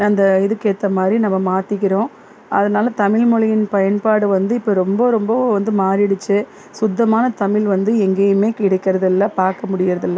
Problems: background sounds at intervals